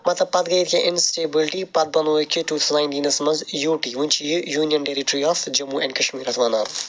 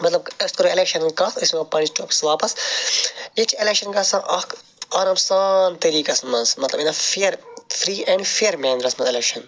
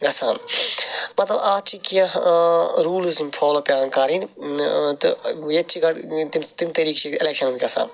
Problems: none marked